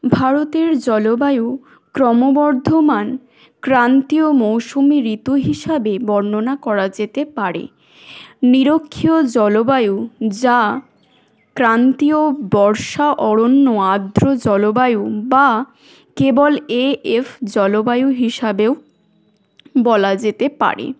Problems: none marked